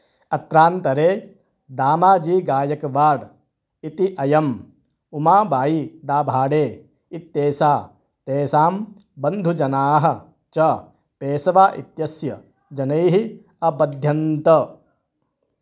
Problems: none marked